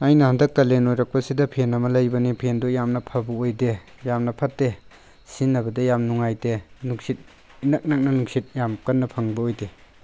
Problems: none marked